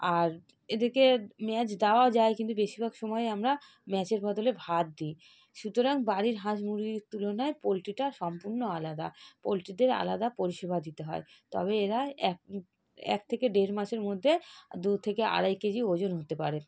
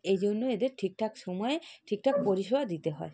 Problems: none marked